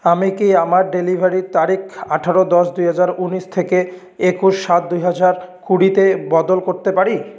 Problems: none marked